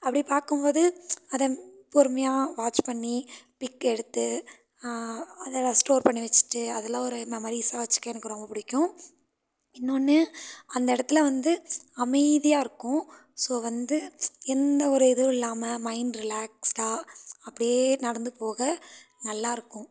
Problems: none marked